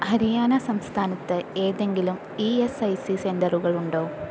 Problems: constant background noise